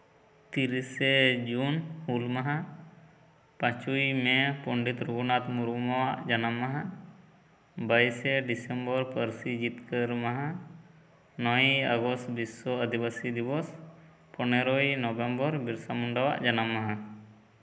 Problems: none marked